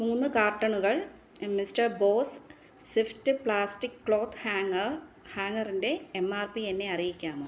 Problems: low volume